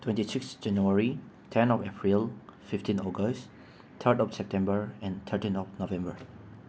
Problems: constant background noise